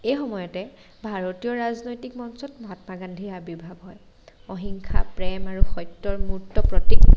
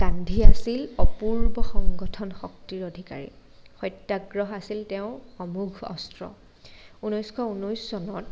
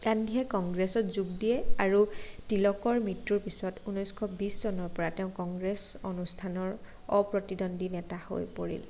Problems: none marked